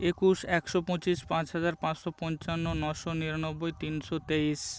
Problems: constant background noise